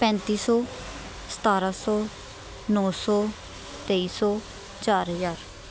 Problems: constant background noise